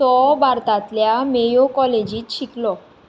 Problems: background sounds at intervals